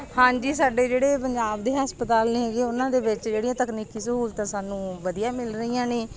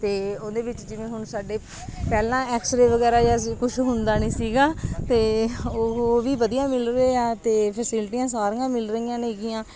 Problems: none marked